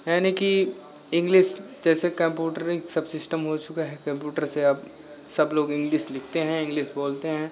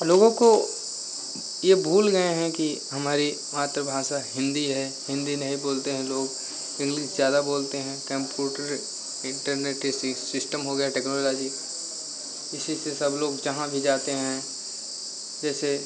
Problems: constant background noise